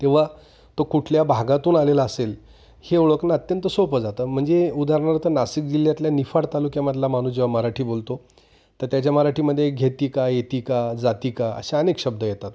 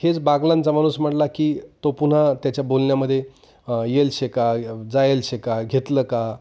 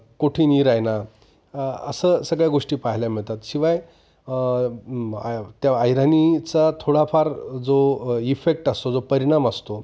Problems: background sounds at intervals